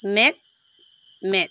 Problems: constant background noise